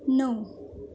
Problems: background sounds at intervals